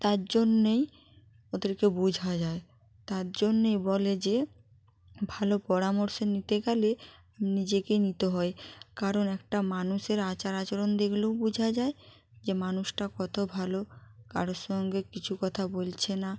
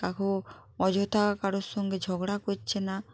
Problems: none marked